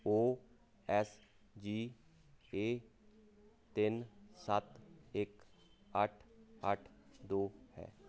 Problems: constant background noise